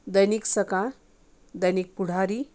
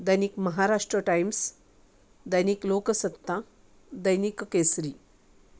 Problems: background sounds at intervals